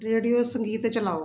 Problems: background sounds at intervals